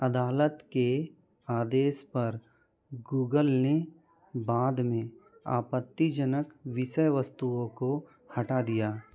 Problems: background conversations at intervals